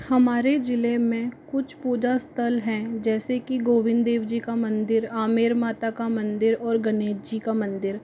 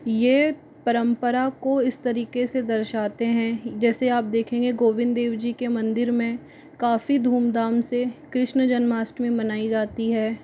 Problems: none marked